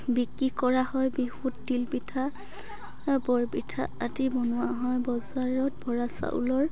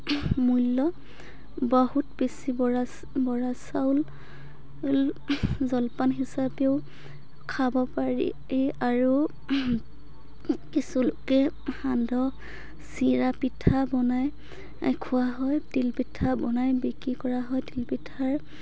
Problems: continuous background conversations